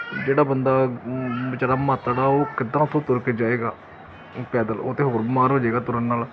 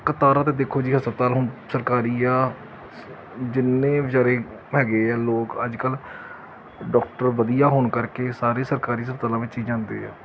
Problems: none marked